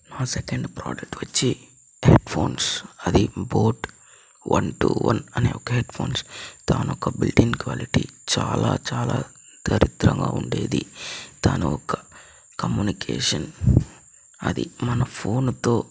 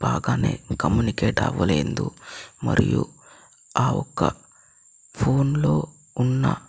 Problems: constant background noise, low volume